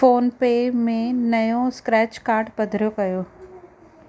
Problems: none marked